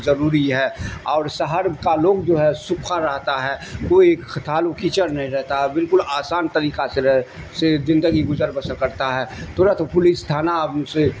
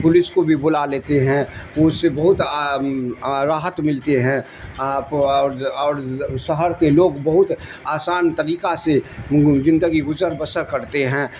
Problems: constant background noise